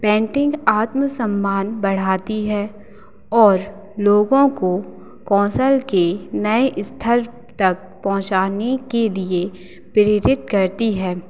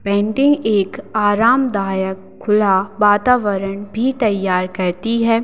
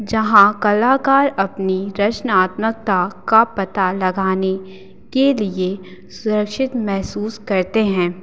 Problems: constant background noise